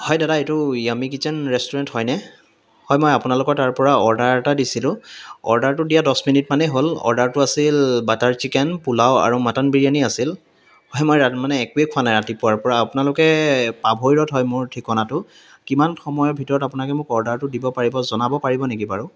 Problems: background sounds at intervals, background conversations at intervals